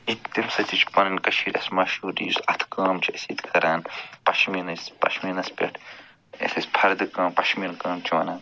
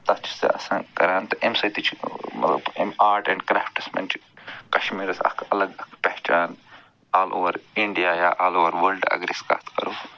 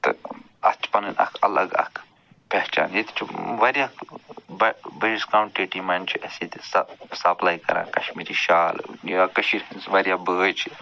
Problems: background sounds at intervals